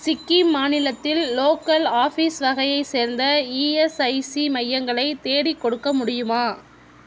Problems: constant background noise